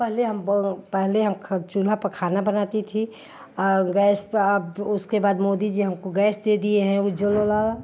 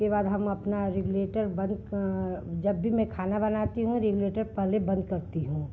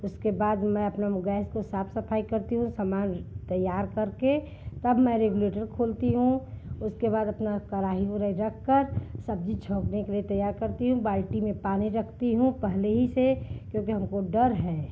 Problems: constant background noise